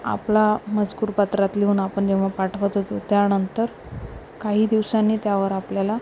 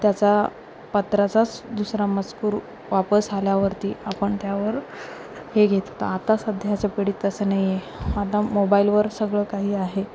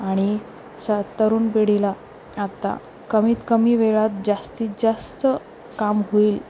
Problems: none marked